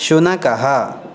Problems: constant background noise